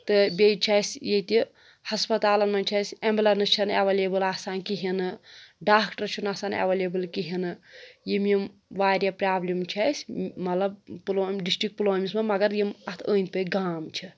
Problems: background sounds at intervals